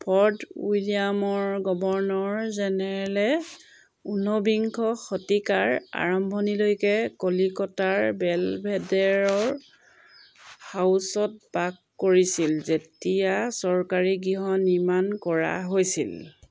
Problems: background sounds at intervals